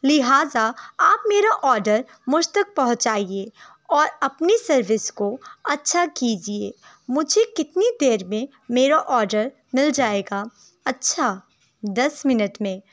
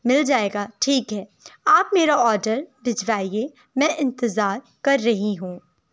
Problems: background sounds at intervals